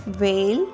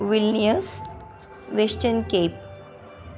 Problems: constant background noise